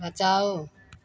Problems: none marked